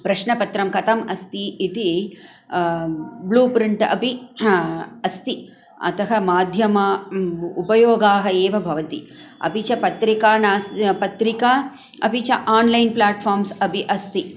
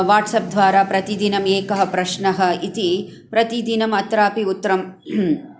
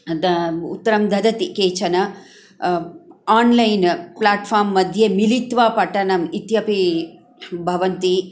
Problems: background sounds at intervals